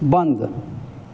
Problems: constant background noise